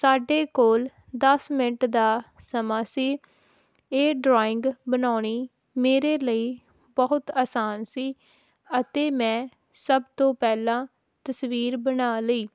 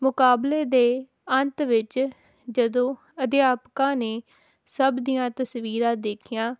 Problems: none marked